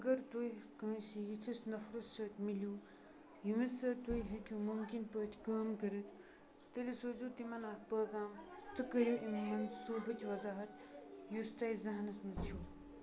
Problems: background sounds at intervals, background conversations at intervals